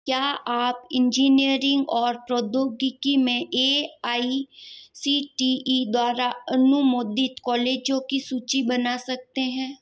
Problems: none marked